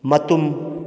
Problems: none marked